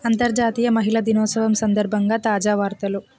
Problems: constant background noise